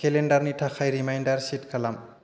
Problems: constant background noise